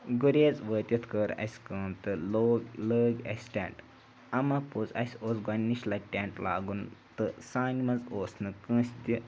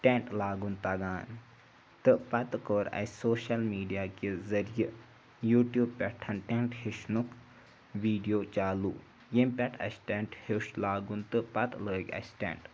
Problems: background sounds at intervals